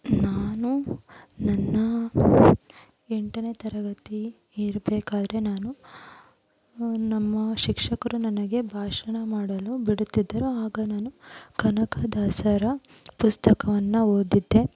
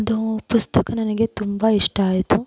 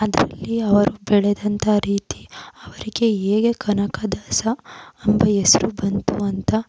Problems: background sounds at intervals